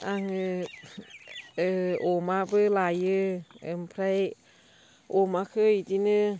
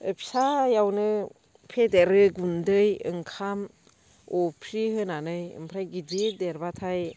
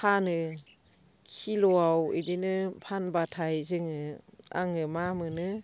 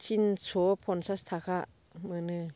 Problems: constant background noise